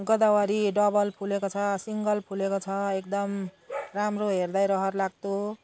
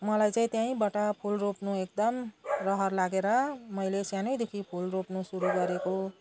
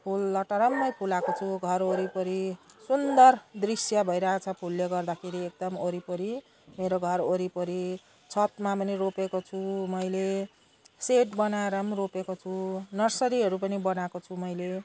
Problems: background conversations at intervals